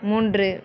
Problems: background conversations at intervals